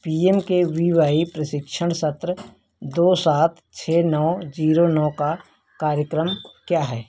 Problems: none marked